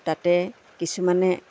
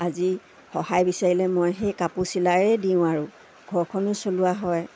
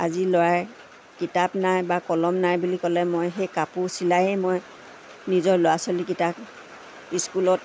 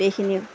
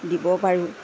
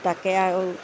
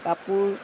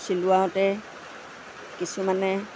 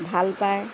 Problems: constant background noise